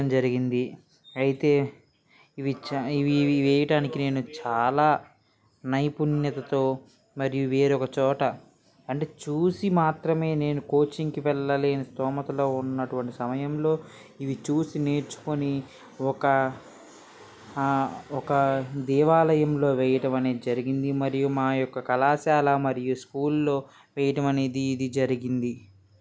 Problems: background conversations at intervals